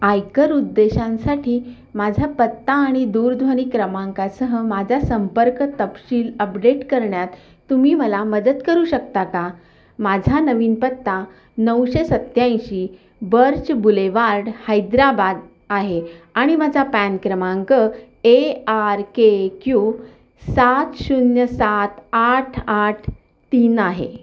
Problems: none marked